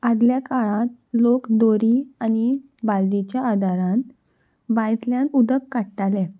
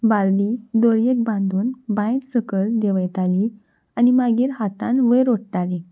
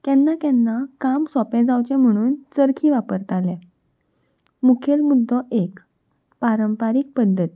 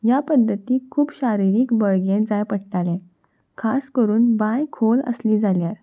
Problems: none marked